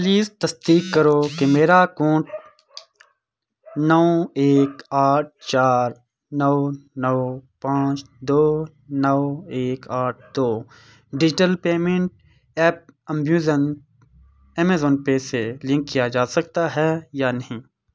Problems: background sounds at intervals